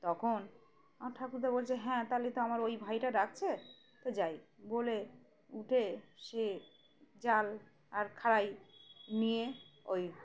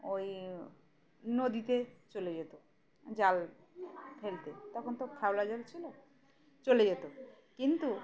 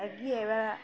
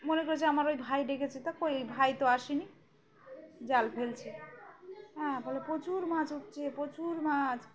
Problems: background sounds at intervals